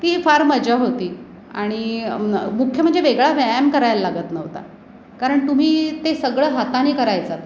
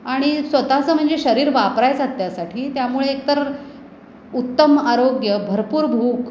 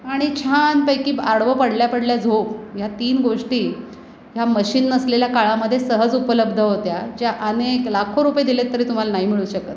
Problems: none marked